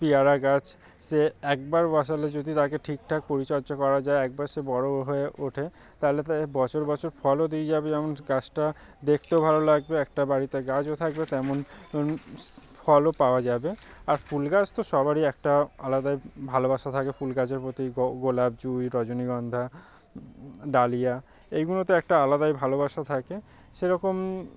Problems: none marked